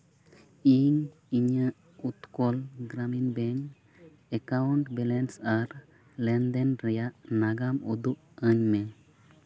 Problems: none marked